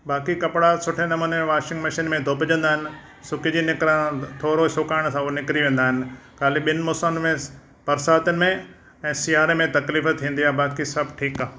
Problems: none marked